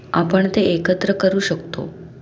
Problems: background sounds at intervals